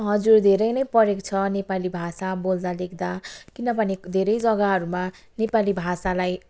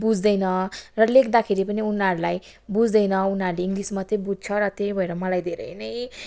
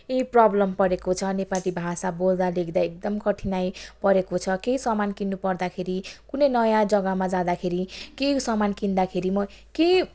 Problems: background sounds at intervals